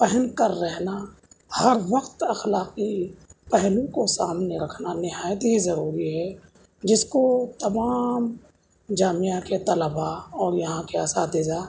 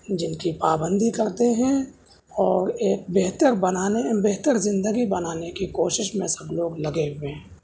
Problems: background sounds at intervals, background conversations at intervals